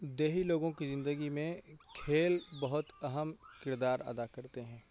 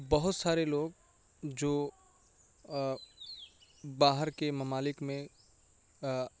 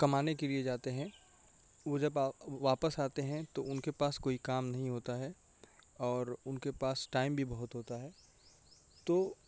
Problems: constant background noise, low volume